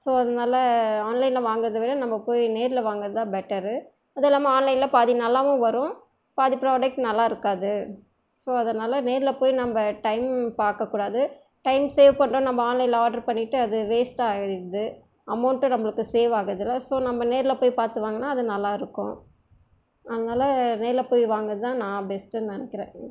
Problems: none marked